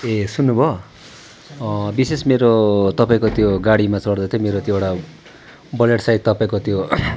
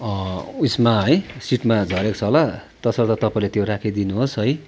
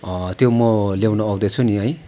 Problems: background sounds at intervals